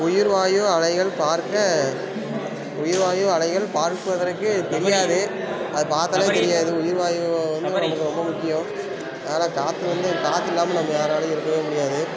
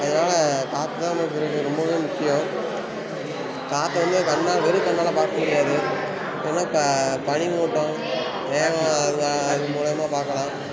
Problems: background sounds at intervals